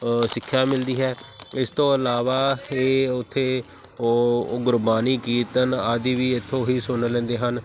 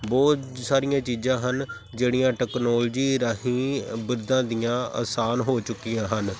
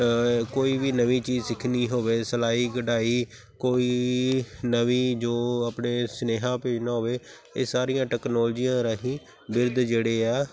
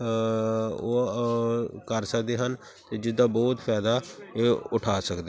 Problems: none marked